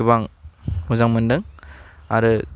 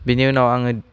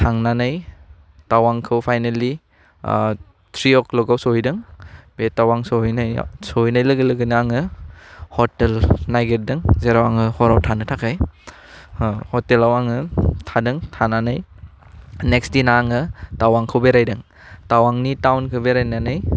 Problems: low volume